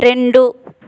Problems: constant background noise